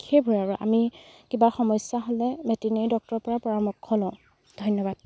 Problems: none marked